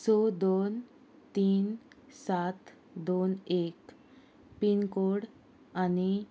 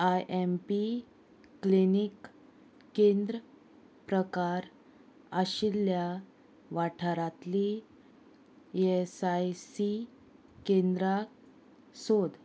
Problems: constant background noise